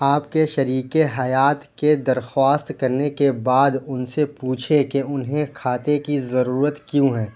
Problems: none marked